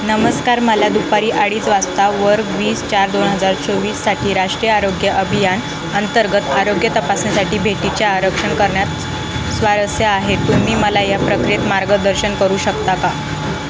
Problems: constant background noise